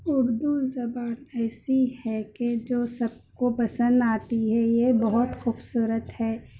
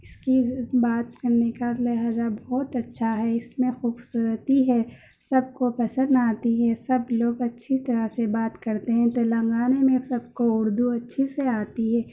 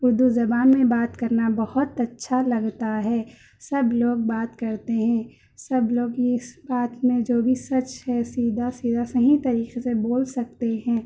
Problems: constant background noise, low volume